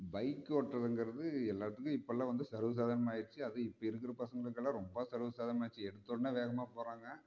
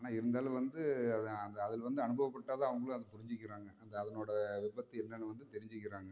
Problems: low volume